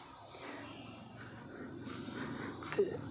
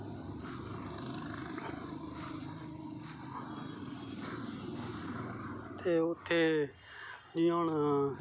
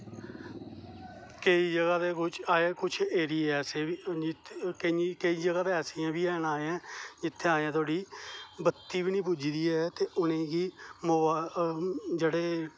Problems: none marked